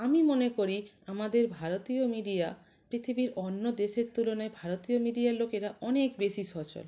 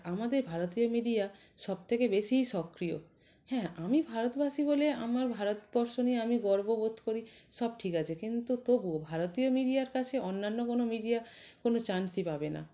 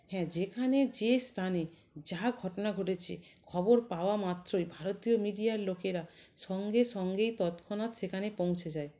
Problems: constant background noise, background conversations at intervals